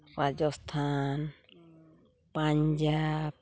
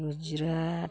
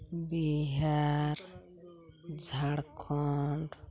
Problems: none marked